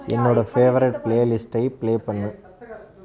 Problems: constant background noise